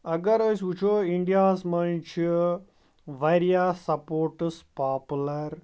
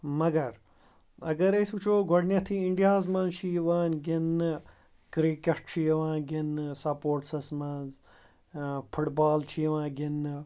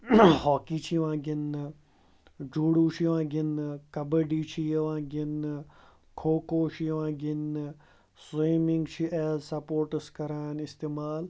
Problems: background sounds at intervals